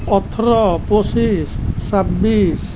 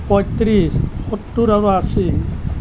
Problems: none marked